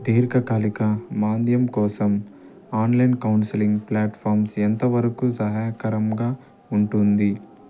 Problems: none marked